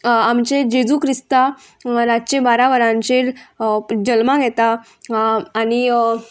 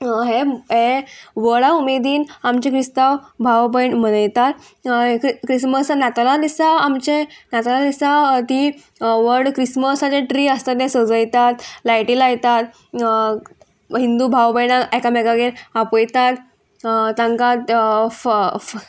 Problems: constant background noise